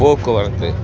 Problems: constant background noise